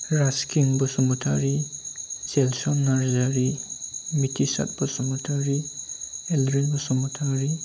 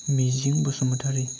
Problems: none marked